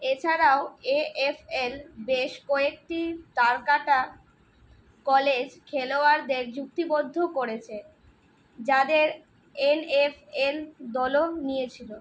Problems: none marked